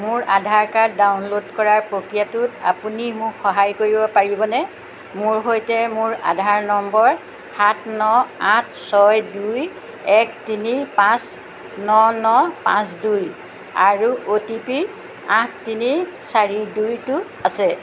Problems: constant background noise